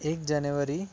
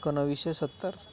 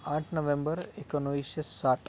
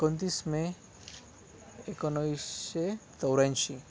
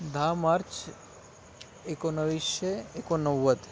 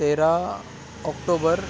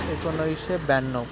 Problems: background sounds at intervals, background conversations at intervals